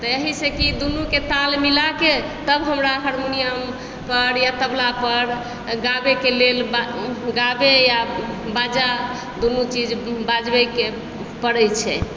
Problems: background sounds at intervals